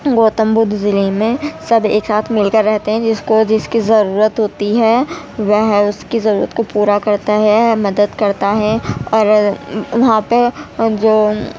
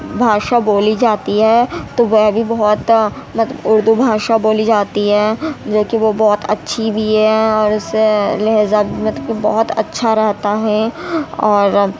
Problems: constant background noise, background conversations at intervals